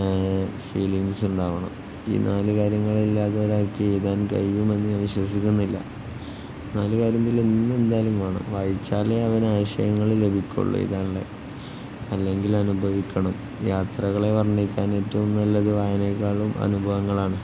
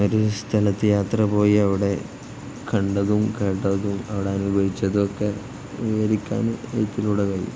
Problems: constant background noise